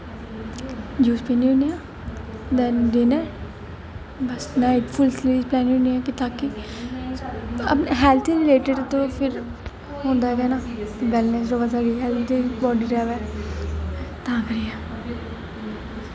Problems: constant background noise